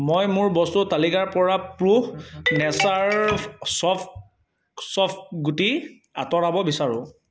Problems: background sounds at intervals